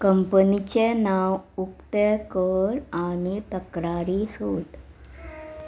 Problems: background sounds at intervals